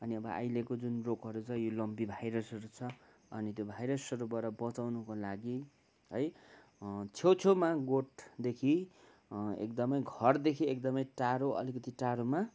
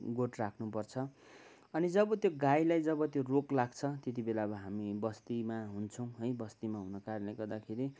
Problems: background sounds at intervals